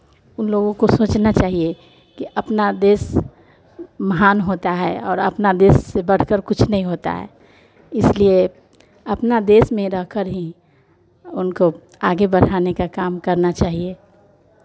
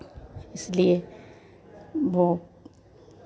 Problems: none marked